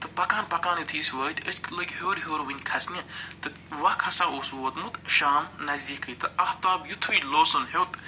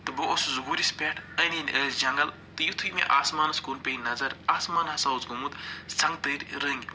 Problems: none marked